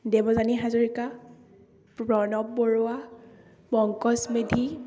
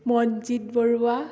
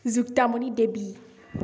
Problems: background conversations at intervals, echo